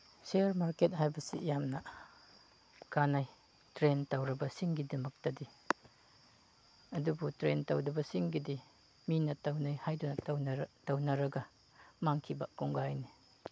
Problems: background sounds at intervals